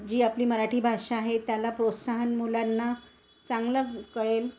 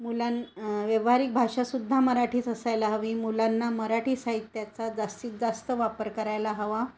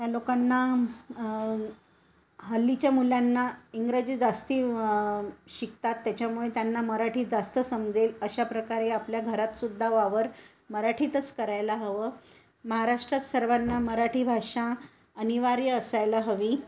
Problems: constant background noise